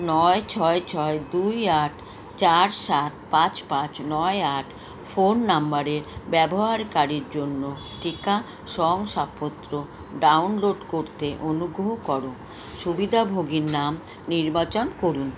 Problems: constant background noise